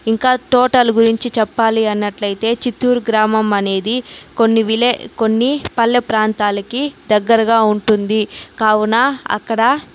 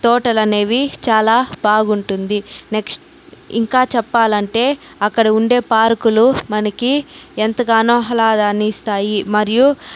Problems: none marked